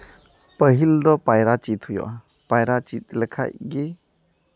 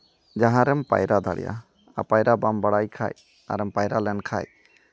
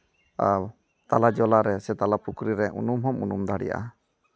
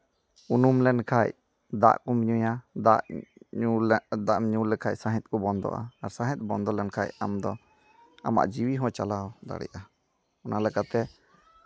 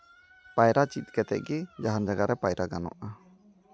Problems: background sounds at intervals, background conversations at intervals